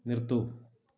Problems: low volume